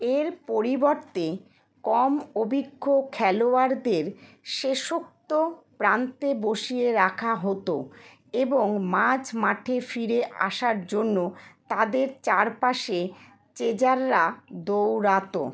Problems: none marked